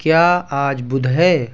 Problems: constant background noise